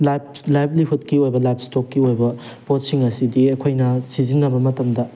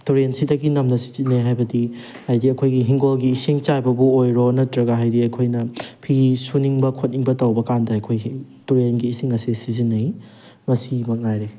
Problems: background sounds at intervals